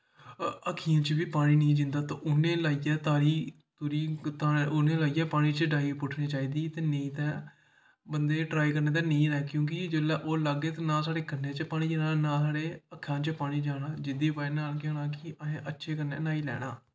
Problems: echo